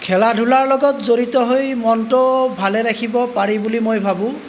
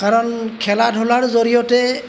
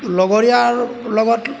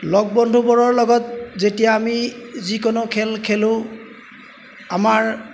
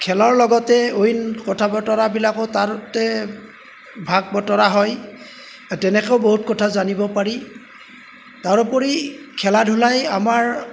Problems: background sounds at intervals